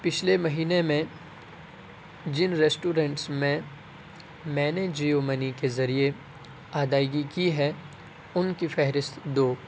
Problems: constant background noise